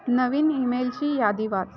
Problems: background sounds at intervals, continuous background conversations